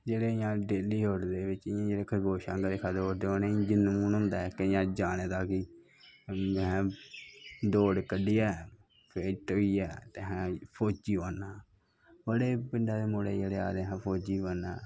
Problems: constant background noise